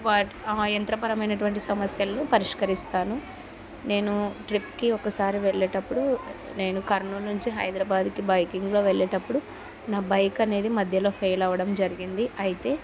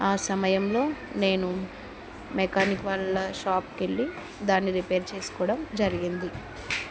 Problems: continuous background conversations